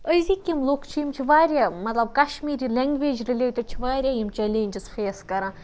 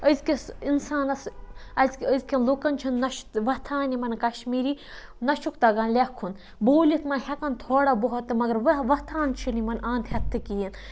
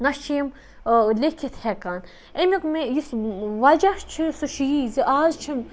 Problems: background sounds at intervals